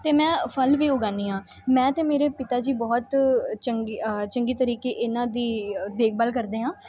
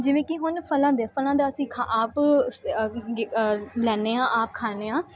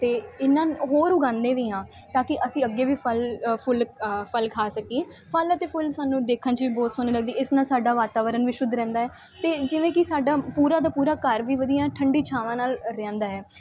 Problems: constant background noise